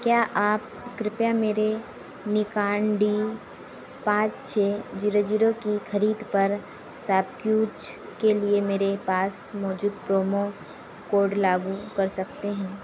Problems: none marked